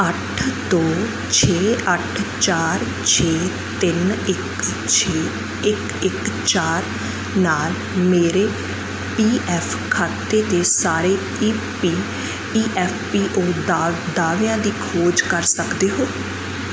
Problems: constant background noise